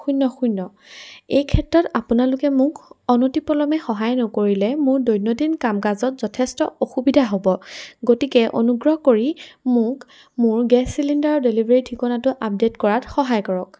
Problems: background sounds at intervals